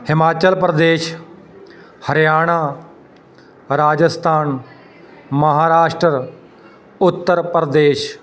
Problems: constant background noise, continuous background conversations